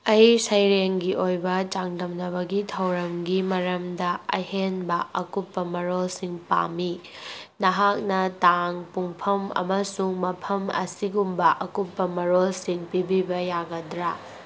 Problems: background sounds at intervals